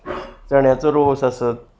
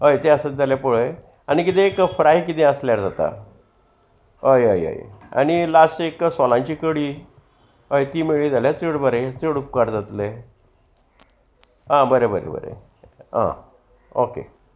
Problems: constant background noise, background conversations at intervals